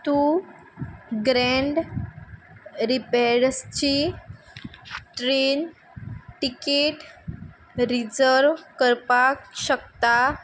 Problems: background sounds at intervals